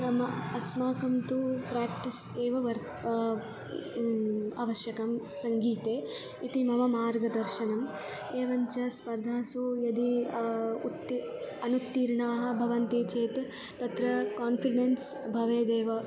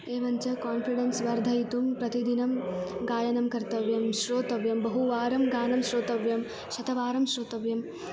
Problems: background sounds at intervals